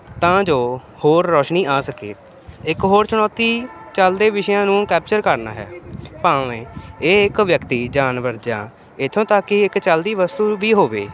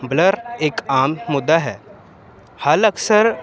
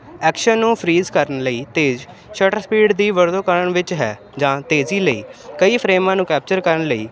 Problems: constant background noise